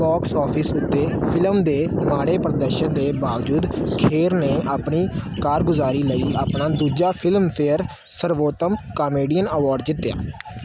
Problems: constant background noise